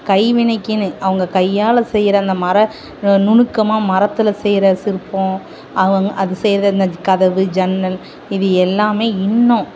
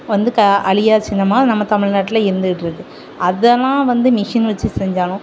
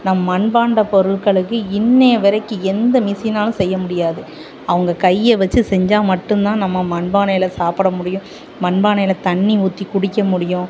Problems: constant background noise